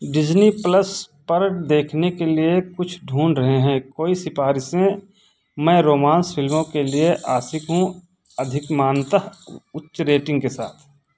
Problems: background conversations at intervals